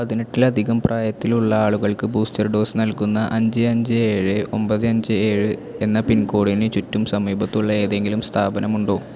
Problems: constant background noise